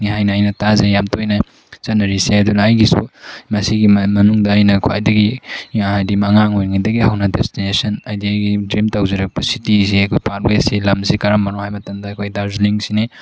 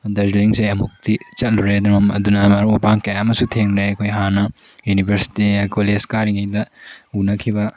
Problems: background sounds at intervals